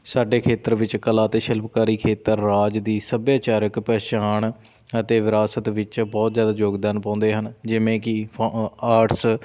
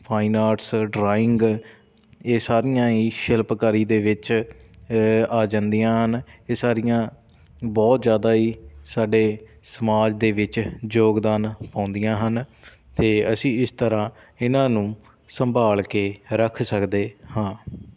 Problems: constant background noise